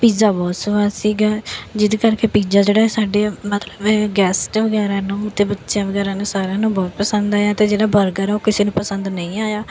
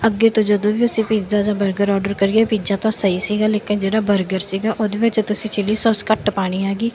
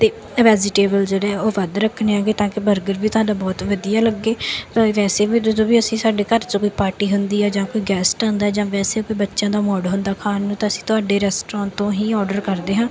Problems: none marked